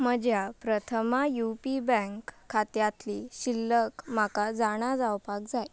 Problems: none marked